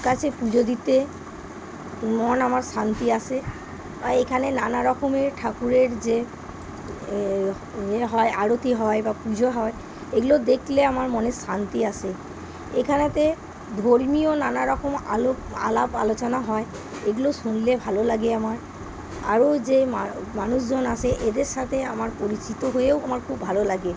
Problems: constant background noise